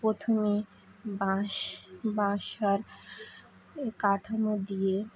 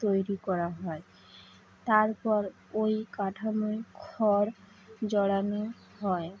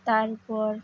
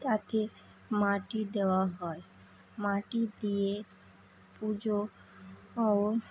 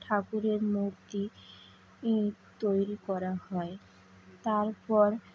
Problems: constant background noise